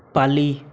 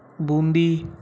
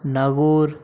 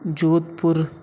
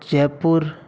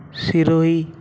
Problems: background sounds at intervals